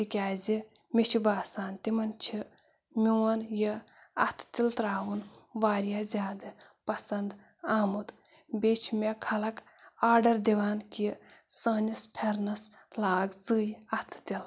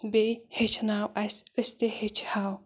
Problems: none marked